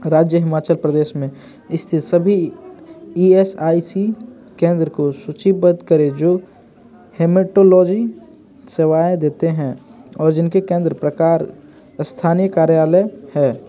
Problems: constant background noise